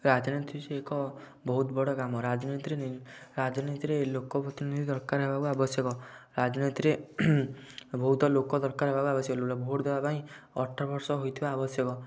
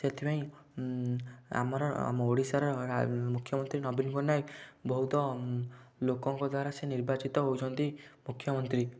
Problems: none marked